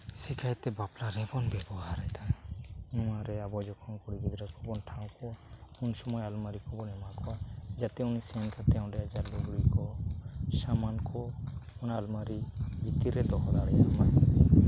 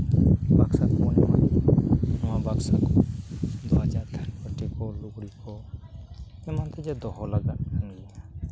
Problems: constant background noise